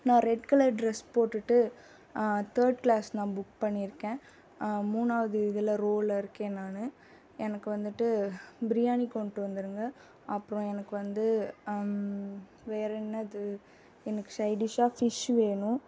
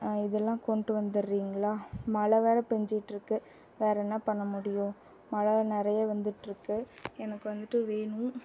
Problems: background sounds at intervals